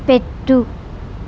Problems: constant background noise